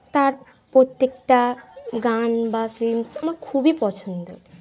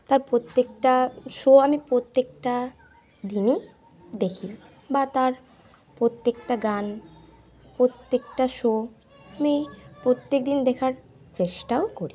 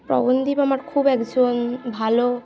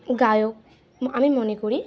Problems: continuous background conversations